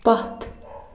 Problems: none marked